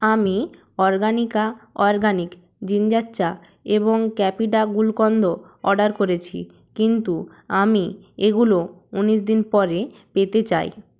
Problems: none marked